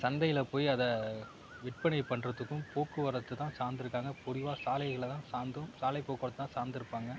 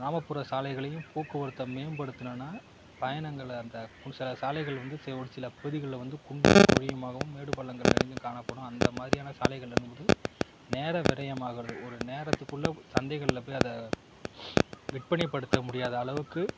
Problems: constant background noise, low volume